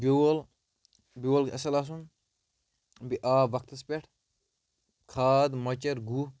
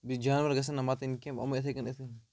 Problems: background sounds at intervals